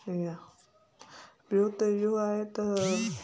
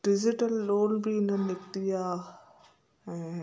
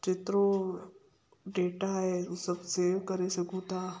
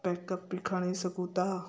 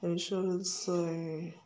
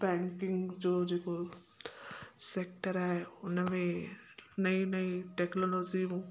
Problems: constant background noise